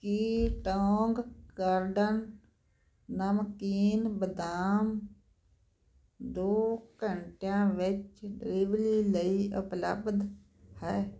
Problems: constant background noise